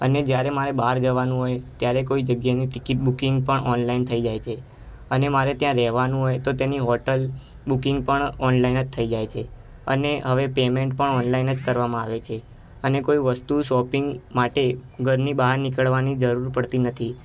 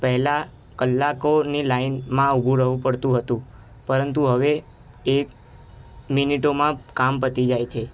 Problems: constant background noise